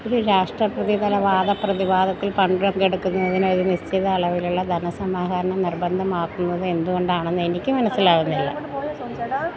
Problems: background sounds at intervals